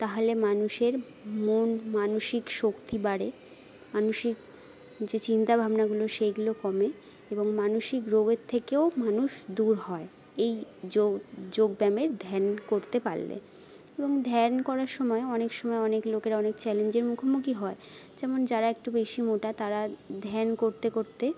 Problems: none marked